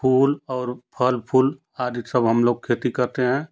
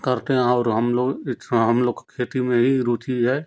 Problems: constant background noise